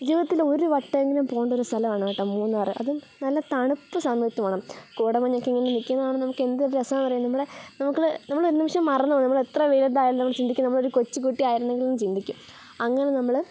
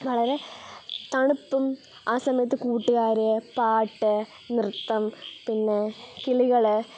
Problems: background sounds at intervals